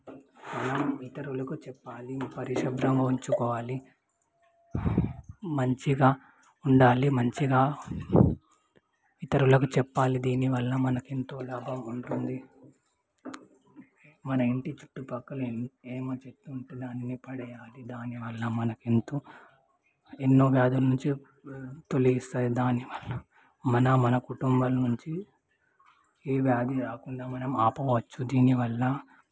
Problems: background sounds at intervals, low volume